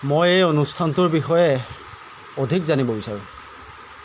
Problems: none marked